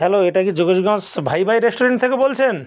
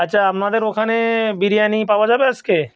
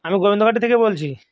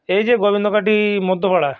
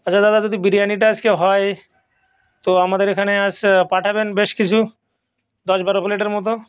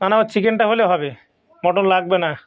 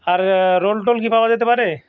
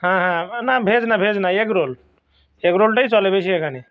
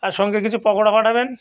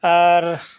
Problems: background sounds at intervals, background conversations at intervals